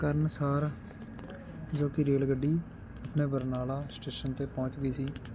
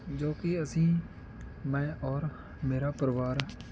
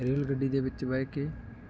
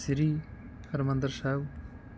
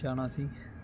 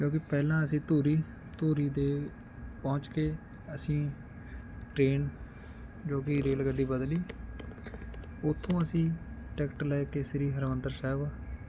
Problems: constant background noise